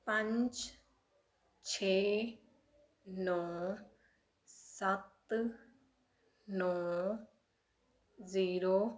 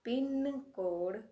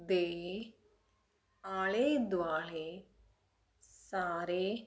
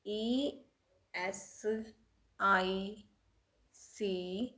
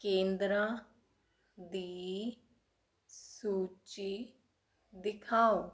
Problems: background sounds at intervals